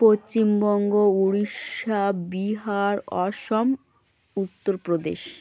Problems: constant background noise, background conversations at intervals